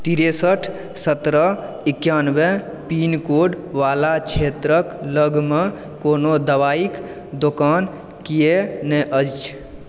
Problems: none marked